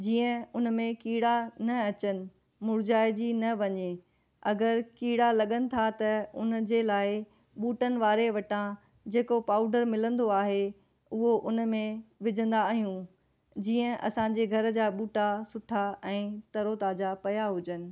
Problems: none marked